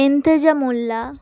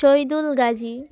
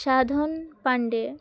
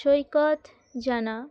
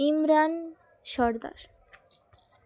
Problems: constant background noise